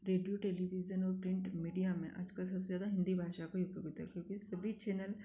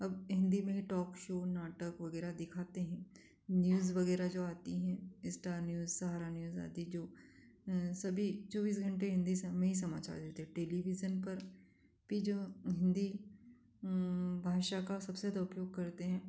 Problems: constant background noise